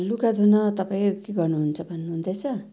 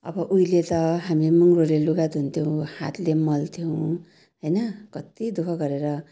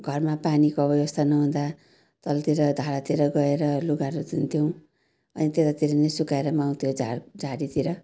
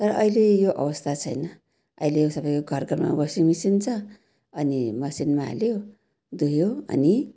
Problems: none marked